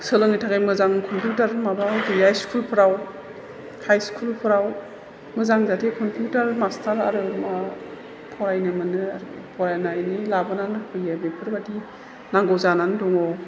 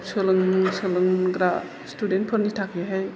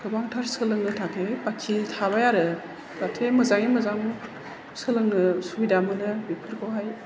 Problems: background sounds at intervals, background conversations at intervals